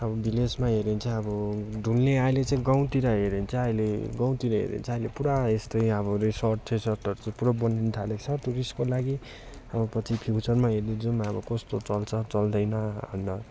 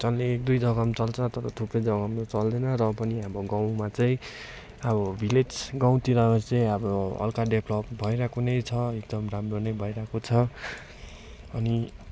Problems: constant background noise